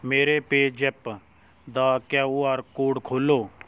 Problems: none marked